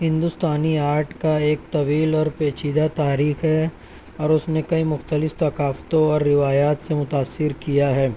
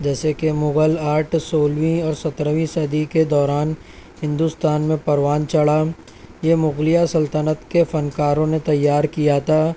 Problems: constant background noise